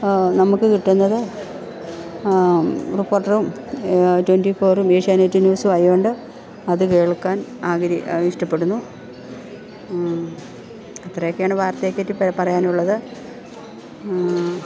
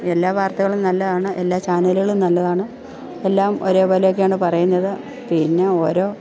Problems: background sounds at intervals, background conversations at intervals